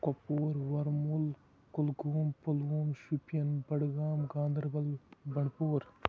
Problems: low volume